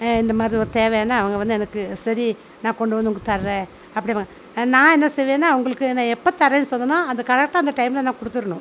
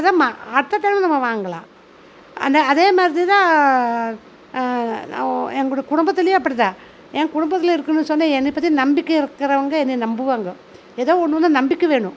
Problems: constant background noise